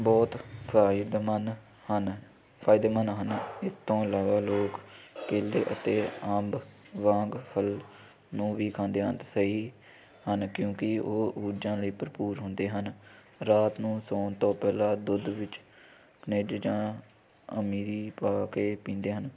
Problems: none marked